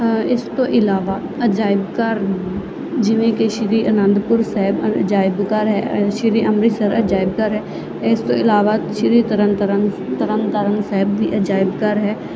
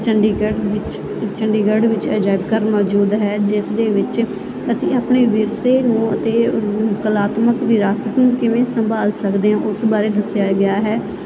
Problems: constant background noise